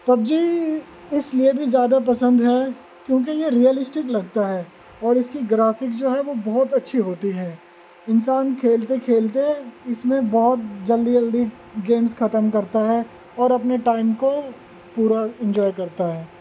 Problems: constant background noise